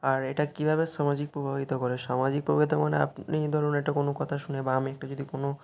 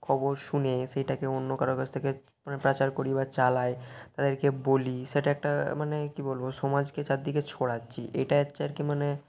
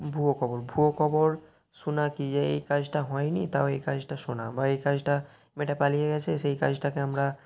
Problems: constant background noise, continuous background conversations